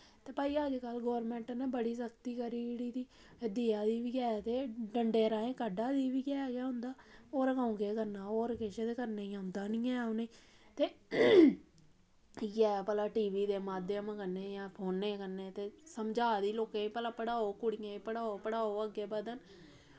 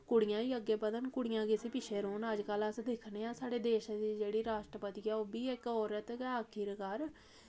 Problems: background sounds at intervals